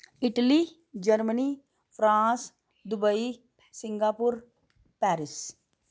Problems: background sounds at intervals